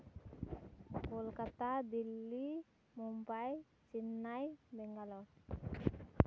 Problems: constant background noise